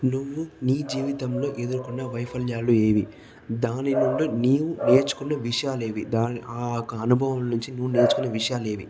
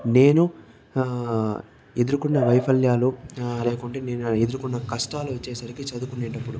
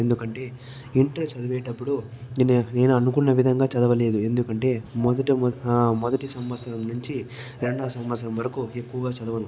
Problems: background sounds at intervals, background conversations at intervals